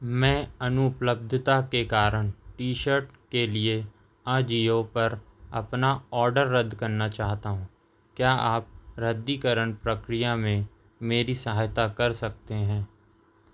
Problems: none marked